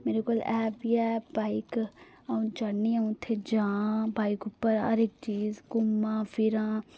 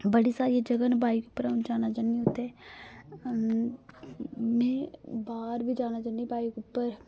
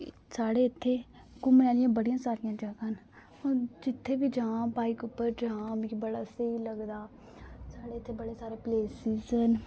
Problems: none marked